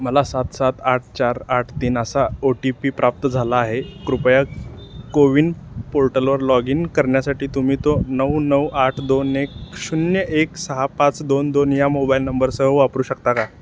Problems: none marked